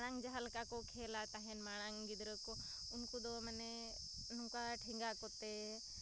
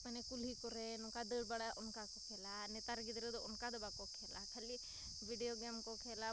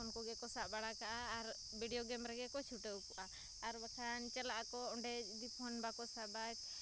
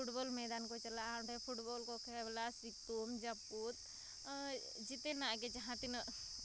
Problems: none marked